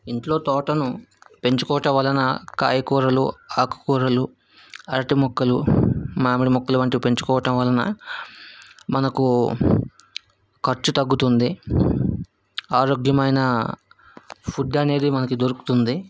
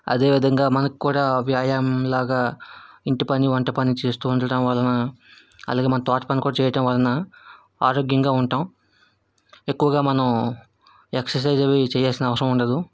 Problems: background sounds at intervals